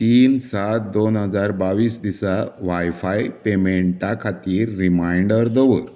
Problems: background sounds at intervals